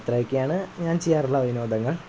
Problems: constant background noise